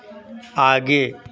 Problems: constant background noise, continuous background conversations